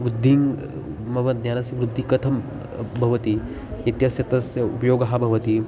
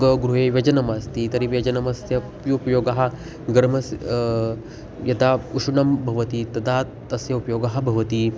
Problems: constant background noise, background conversations at intervals